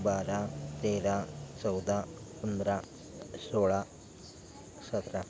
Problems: none marked